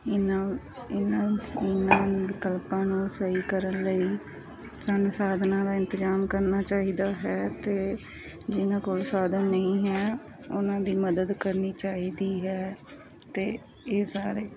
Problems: constant background noise